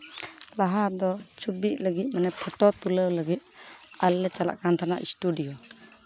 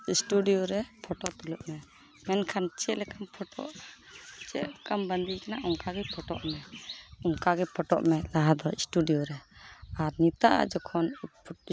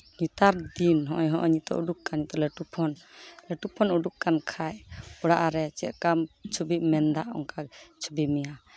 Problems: none marked